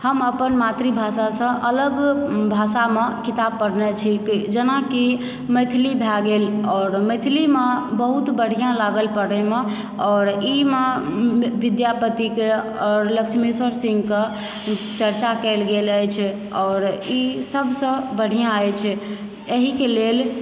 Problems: background sounds at intervals